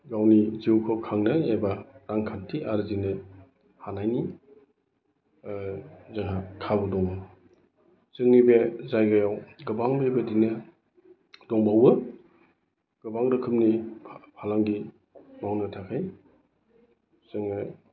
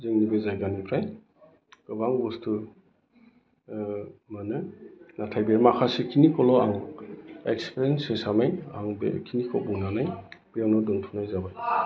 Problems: constant background noise